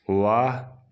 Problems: background sounds at intervals